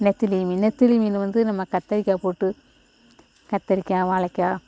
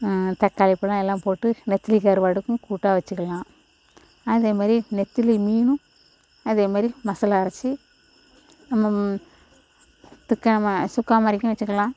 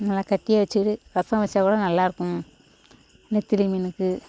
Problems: constant background noise